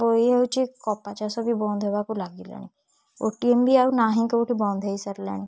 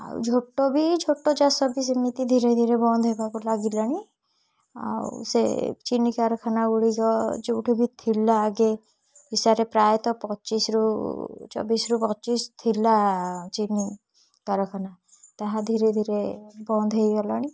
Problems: none marked